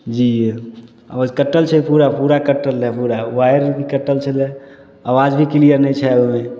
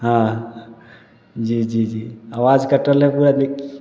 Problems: none marked